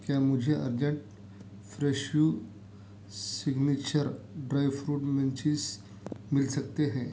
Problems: background sounds at intervals